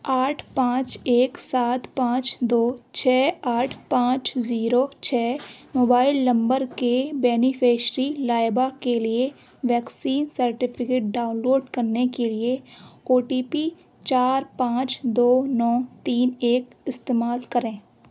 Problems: none marked